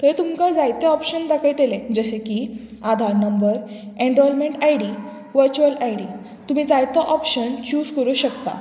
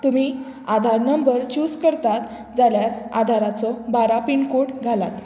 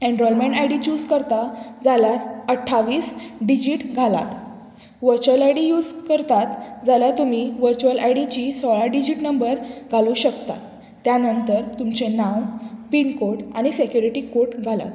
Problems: background sounds at intervals